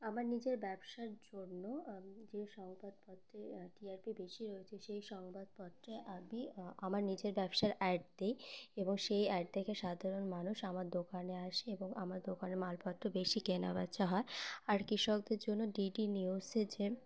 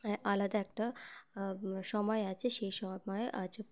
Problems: constant background noise